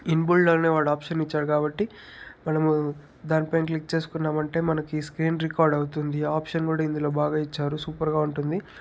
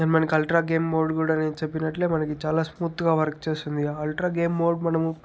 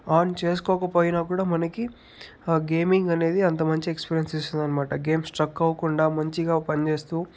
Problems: background sounds at intervals